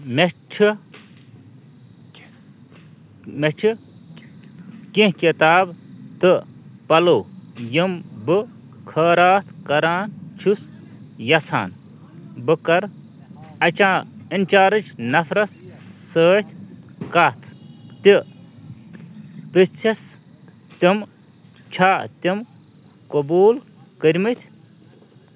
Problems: constant background noise, background conversations at intervals